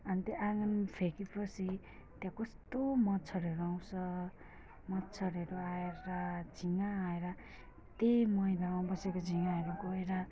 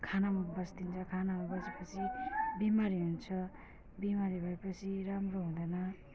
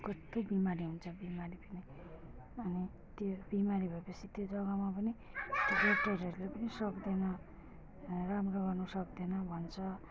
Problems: background conversations at intervals, low volume